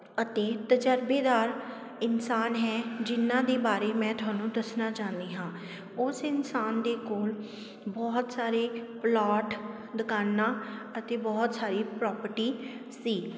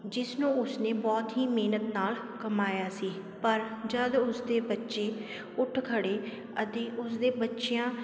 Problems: constant background noise